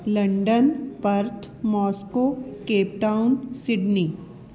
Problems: background sounds at intervals